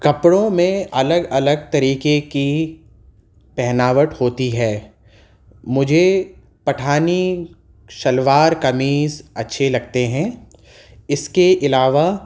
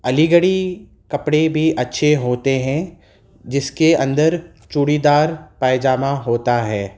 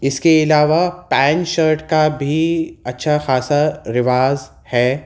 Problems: none marked